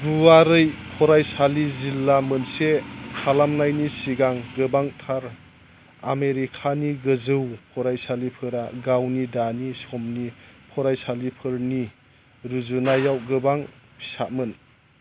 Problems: constant background noise